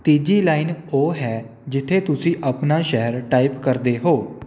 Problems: none marked